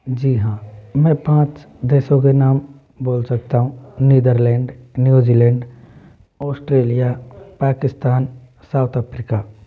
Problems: none marked